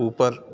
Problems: none marked